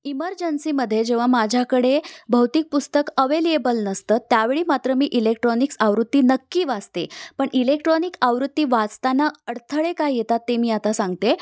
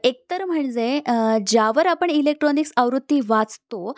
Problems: background sounds at intervals